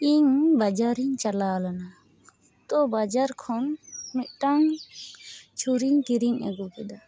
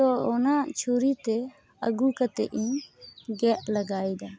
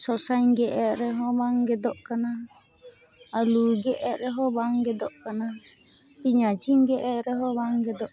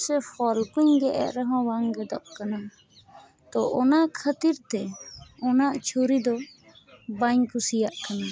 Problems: background sounds at intervals